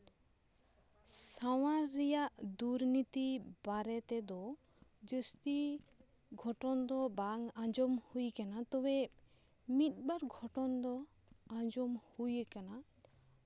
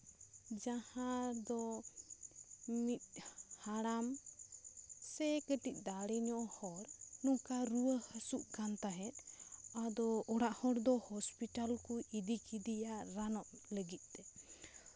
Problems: none marked